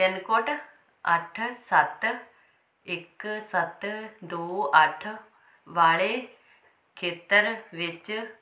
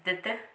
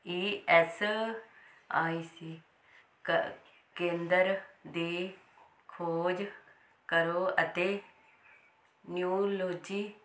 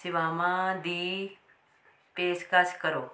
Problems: none marked